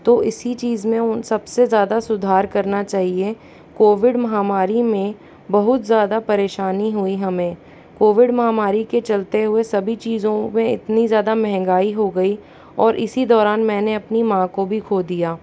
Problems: background sounds at intervals